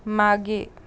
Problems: background sounds at intervals